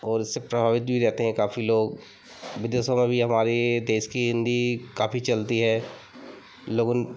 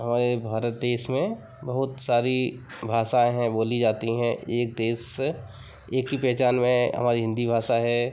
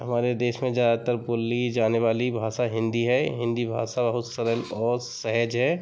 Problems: constant background noise, background conversations at intervals